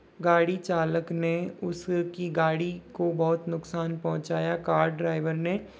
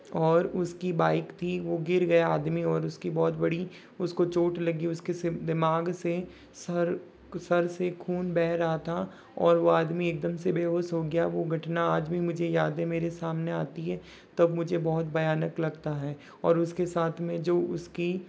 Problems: none marked